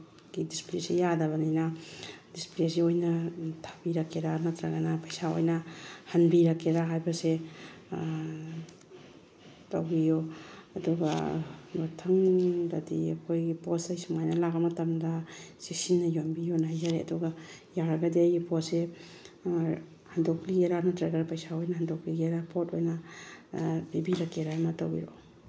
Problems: background sounds at intervals, background conversations at intervals